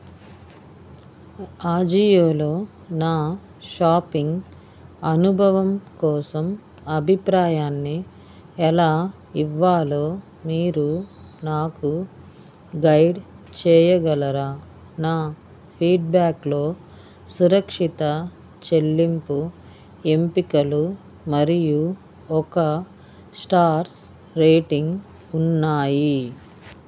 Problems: none marked